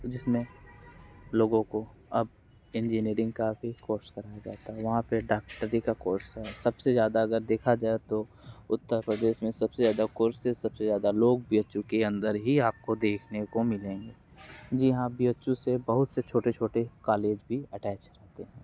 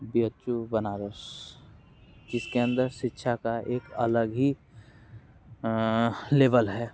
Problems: none marked